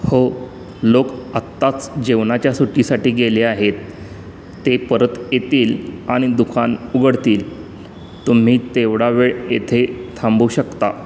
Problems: none marked